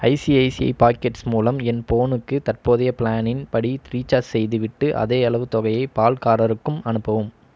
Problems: none marked